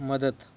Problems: none marked